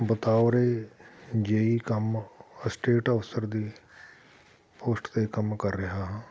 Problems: none marked